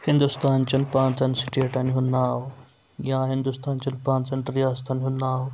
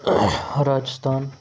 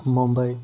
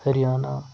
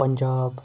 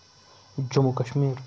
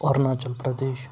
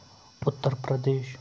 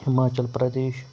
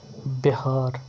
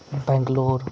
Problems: constant background noise